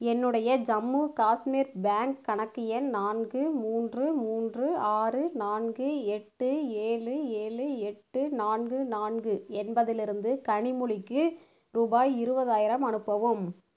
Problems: none marked